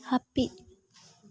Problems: background sounds at intervals